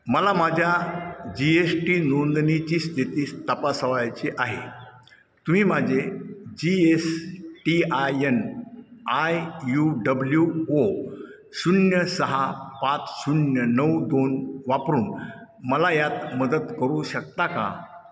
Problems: none marked